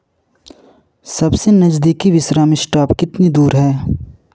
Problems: none marked